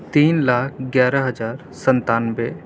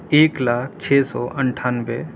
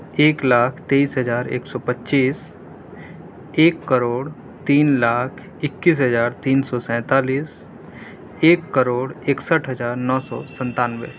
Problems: none marked